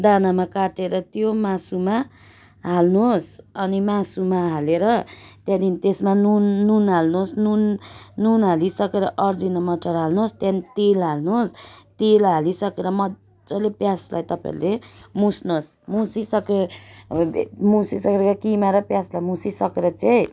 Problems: none marked